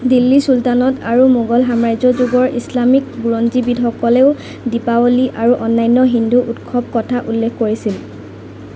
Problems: constant background noise